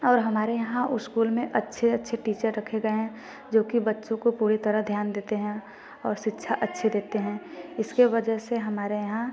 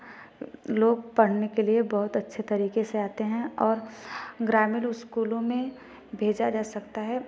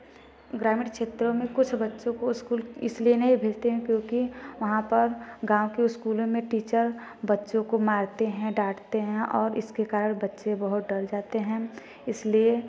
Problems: constant background noise